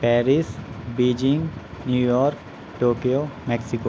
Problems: none marked